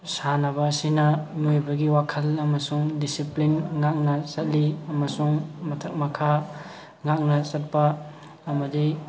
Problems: constant background noise, background conversations at intervals